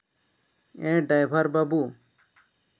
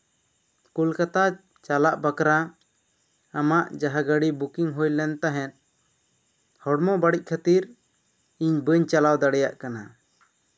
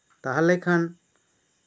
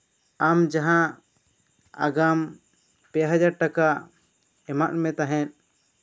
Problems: none marked